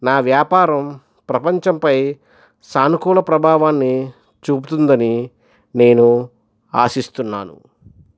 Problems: none marked